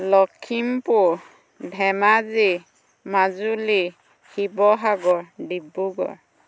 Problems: constant background noise